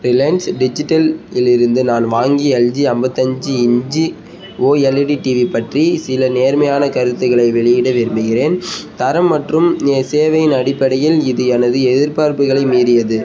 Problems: background sounds at intervals, background conversations at intervals